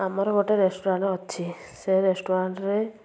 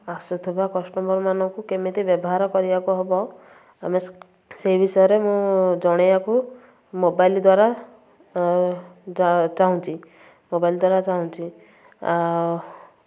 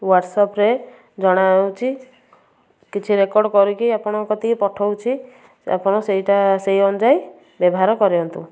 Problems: background sounds at intervals, background conversations at intervals